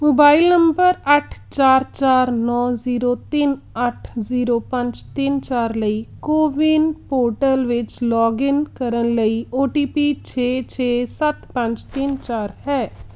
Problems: background sounds at intervals